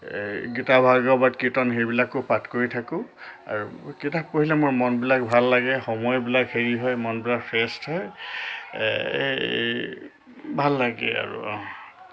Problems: constant background noise